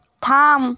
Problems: none marked